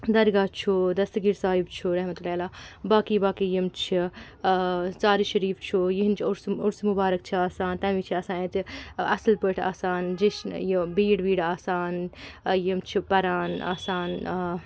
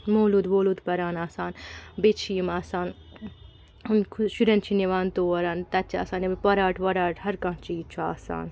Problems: constant background noise